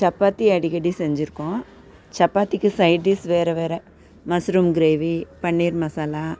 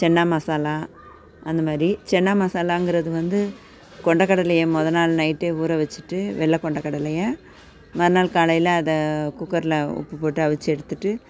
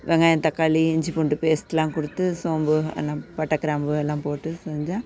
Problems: constant background noise